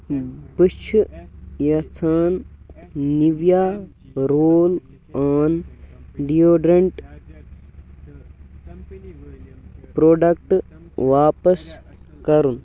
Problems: background sounds at intervals, background conversations at intervals